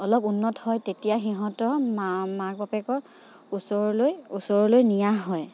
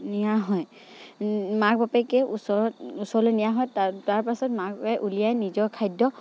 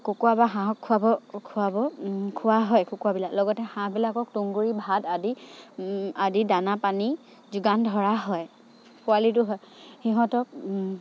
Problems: background sounds at intervals